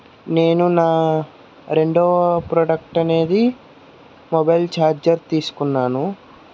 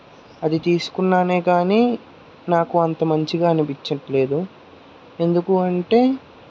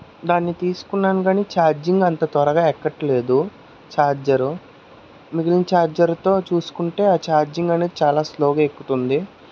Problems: constant background noise